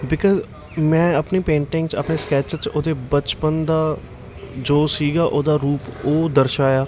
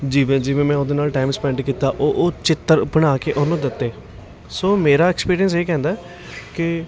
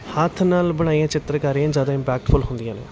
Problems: none marked